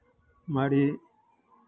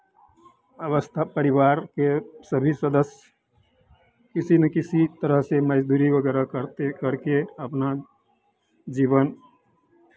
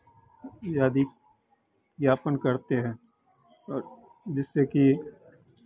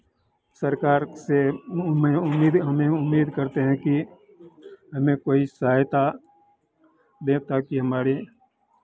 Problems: none marked